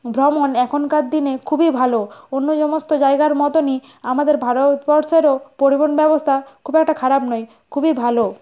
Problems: none marked